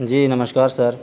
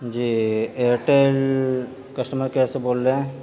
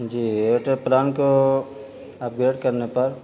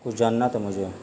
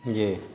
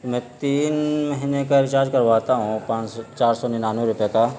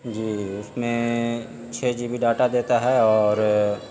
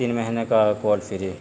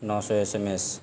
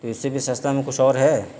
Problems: constant background noise